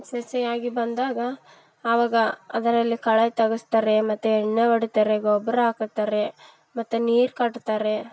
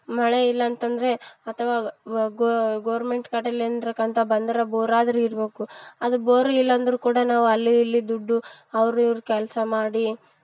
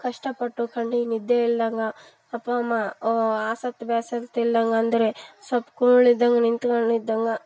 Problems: background sounds at intervals